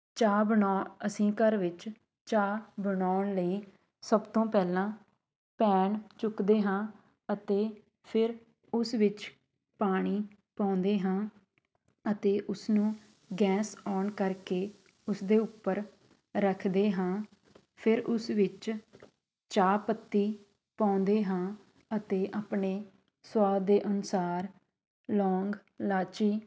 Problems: background sounds at intervals, continuous background conversations